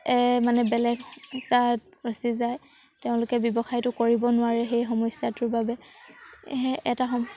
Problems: background sounds at intervals